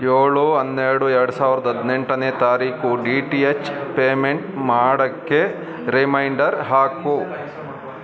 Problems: background conversations at intervals